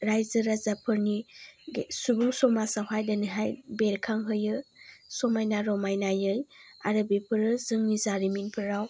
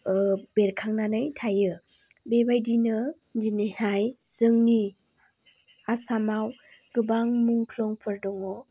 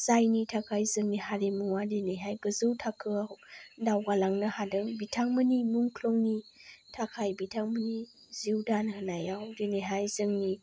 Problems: low volume